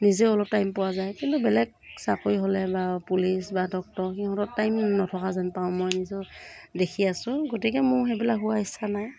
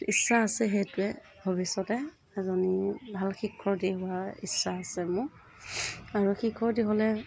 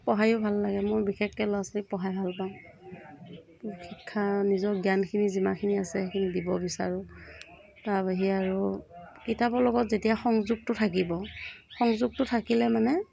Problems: background sounds at intervals